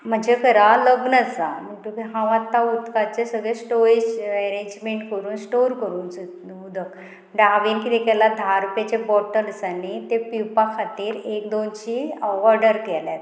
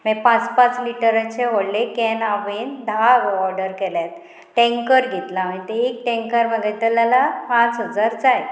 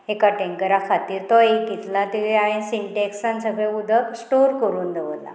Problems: constant background noise